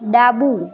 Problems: continuous background conversations